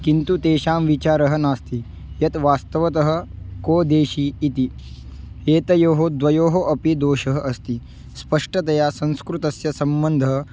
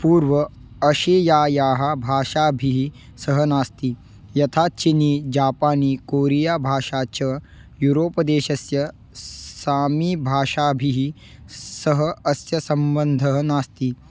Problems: background sounds at intervals